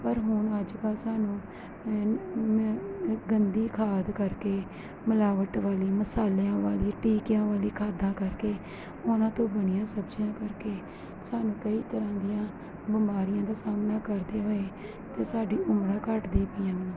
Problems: constant background noise